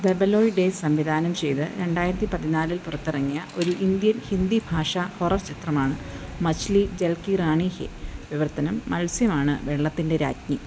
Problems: constant background noise